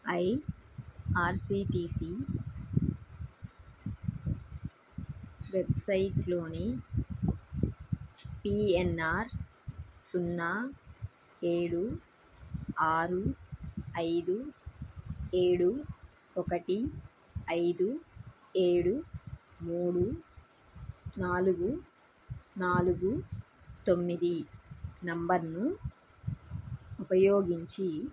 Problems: background conversations at intervals